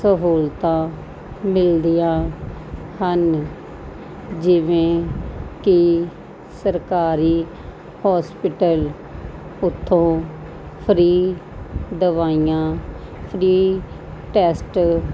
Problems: none marked